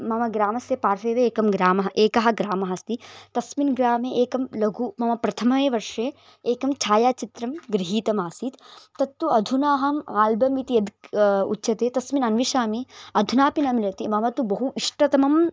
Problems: background sounds at intervals